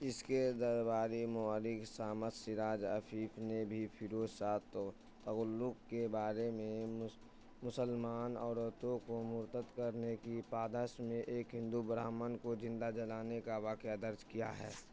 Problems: constant background noise